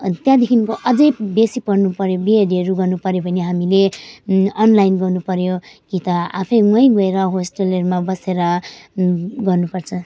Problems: none marked